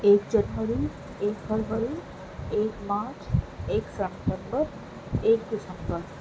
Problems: constant background noise